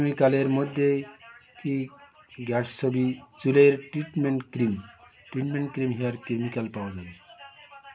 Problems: constant background noise